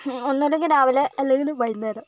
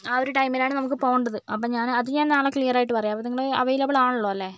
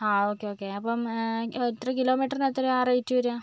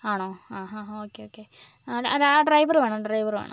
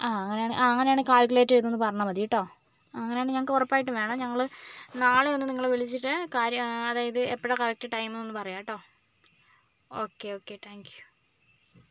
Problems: background sounds at intervals